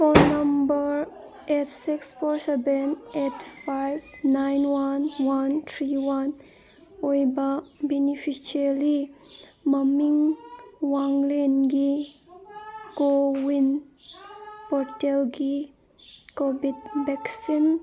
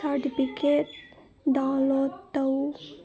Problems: background sounds at intervals, background conversations at intervals